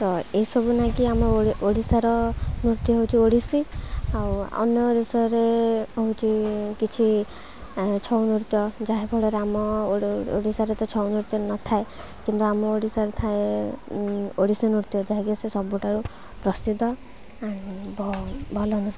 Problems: constant background noise